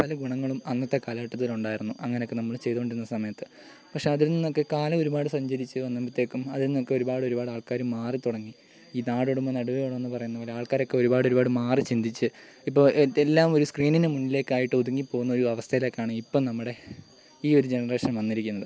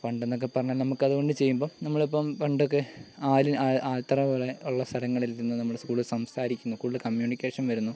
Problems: constant background noise, low volume